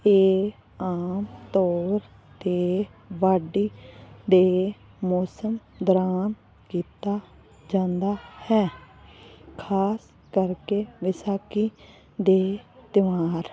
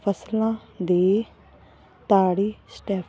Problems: constant background noise